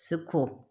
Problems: none marked